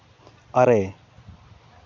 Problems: constant background noise